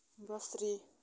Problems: none marked